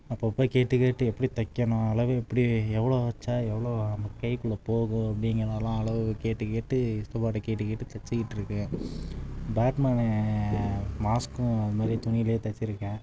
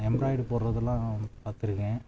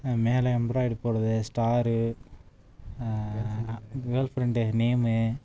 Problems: background sounds at intervals